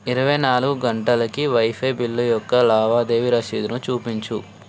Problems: constant background noise